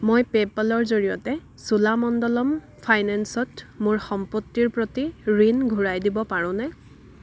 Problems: constant background noise, background conversations at intervals